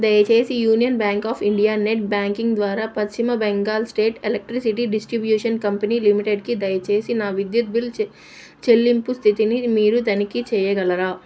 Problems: none marked